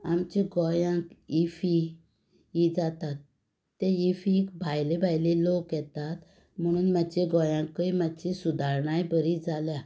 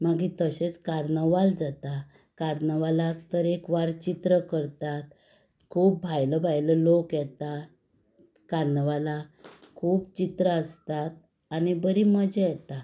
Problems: none marked